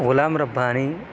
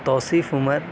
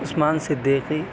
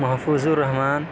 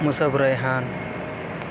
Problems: constant background noise